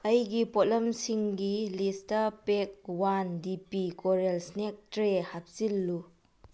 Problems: low volume